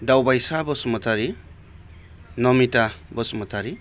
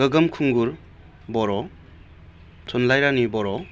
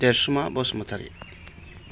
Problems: none marked